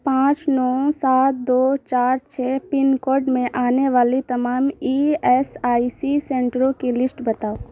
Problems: constant background noise